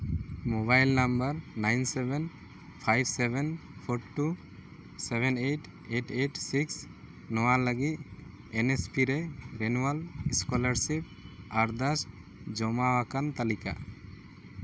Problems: constant background noise